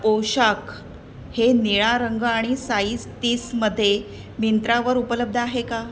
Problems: constant background noise